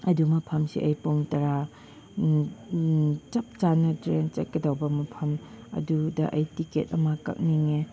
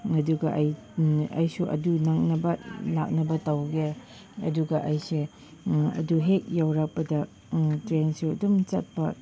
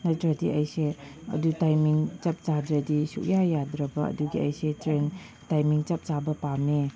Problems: constant background noise